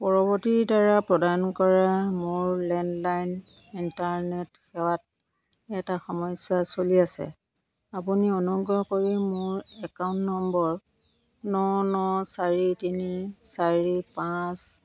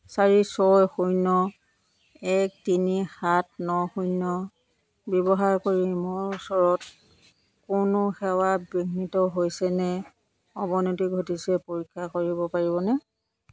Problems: none marked